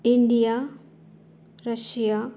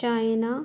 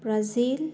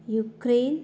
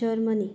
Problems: background sounds at intervals